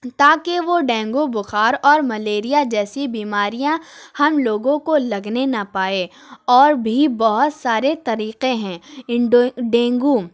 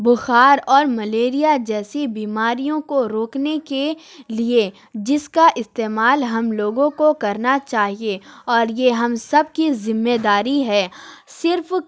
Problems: none marked